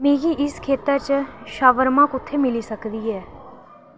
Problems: constant background noise